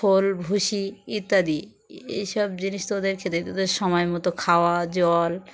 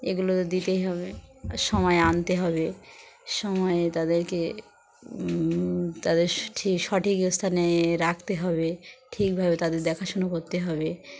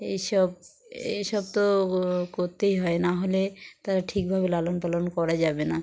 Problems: none marked